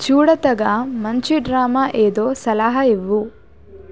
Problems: none marked